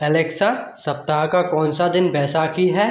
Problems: none marked